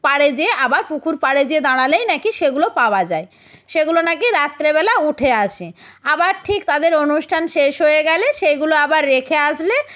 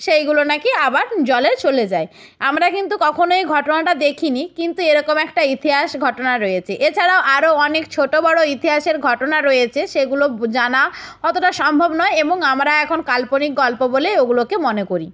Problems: background sounds at intervals